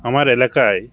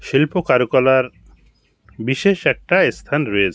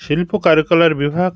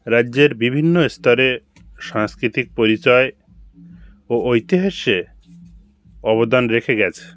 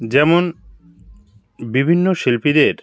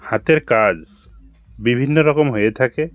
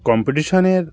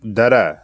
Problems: background sounds at intervals